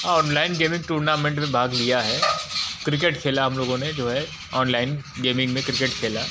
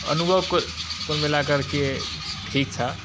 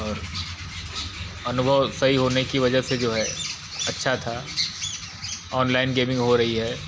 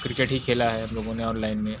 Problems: constant background noise